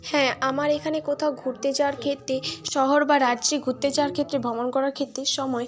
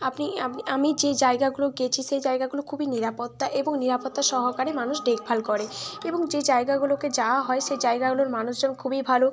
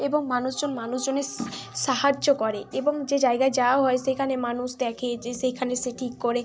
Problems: constant background noise, background conversations at intervals